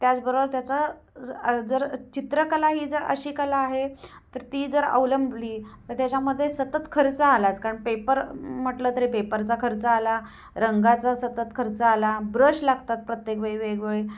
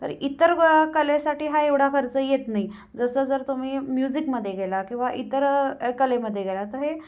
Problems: constant background noise